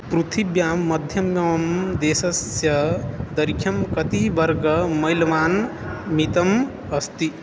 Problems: constant background noise